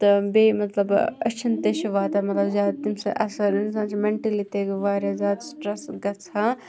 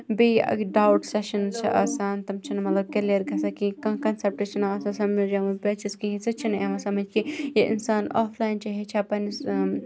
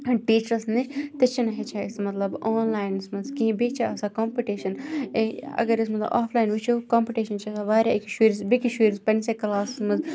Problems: background sounds at intervals